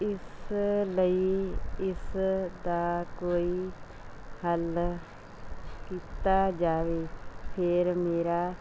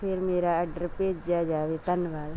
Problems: none marked